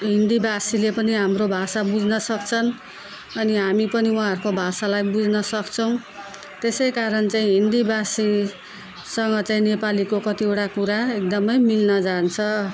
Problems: none marked